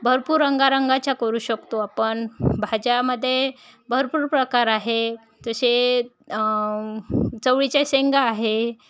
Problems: constant background noise, background conversations at intervals